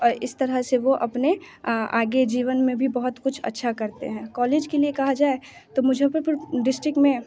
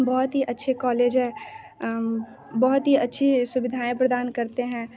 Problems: constant background noise, continuous background conversations